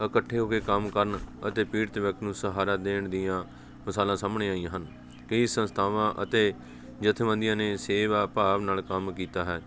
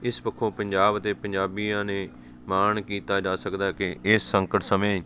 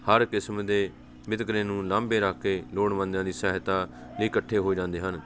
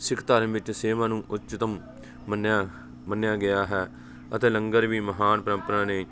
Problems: continuous background conversations